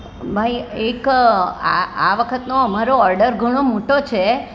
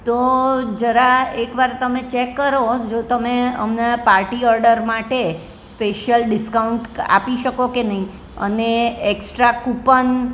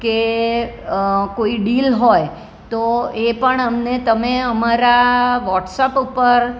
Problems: none marked